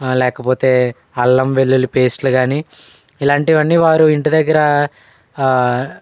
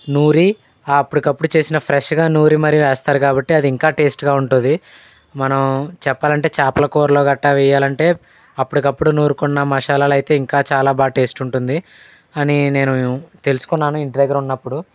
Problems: none marked